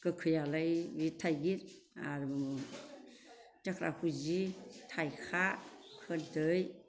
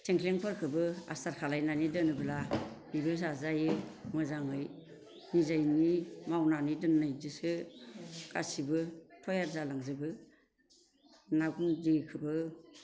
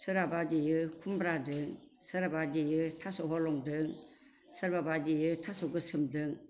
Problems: constant background noise